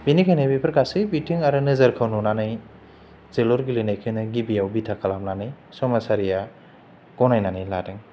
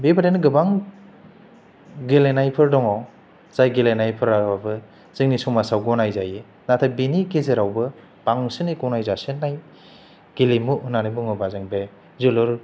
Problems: none marked